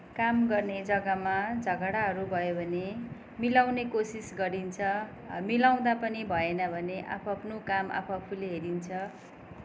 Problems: background sounds at intervals